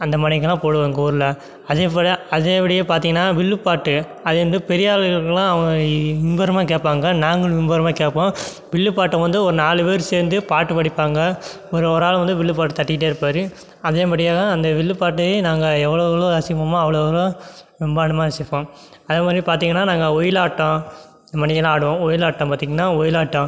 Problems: none marked